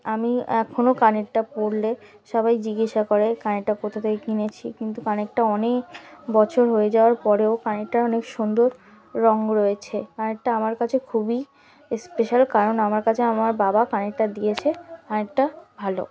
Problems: background sounds at intervals